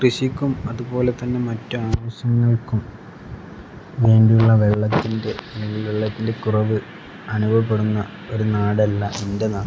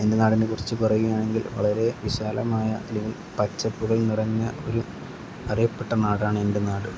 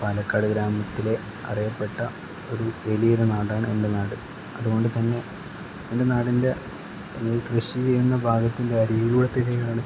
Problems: background sounds at intervals